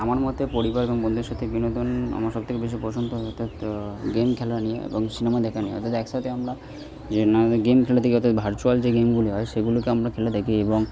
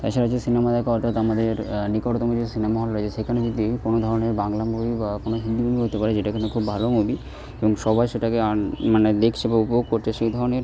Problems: constant background noise